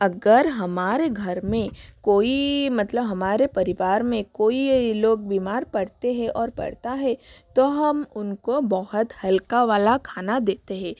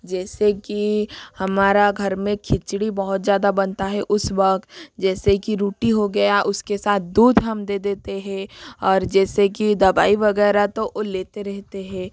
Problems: constant background noise